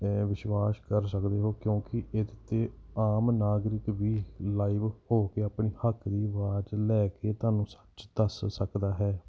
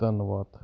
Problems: none marked